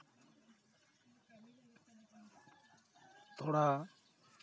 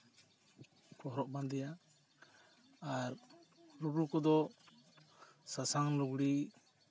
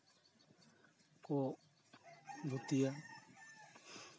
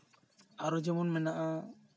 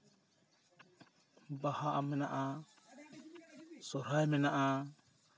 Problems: continuous background conversations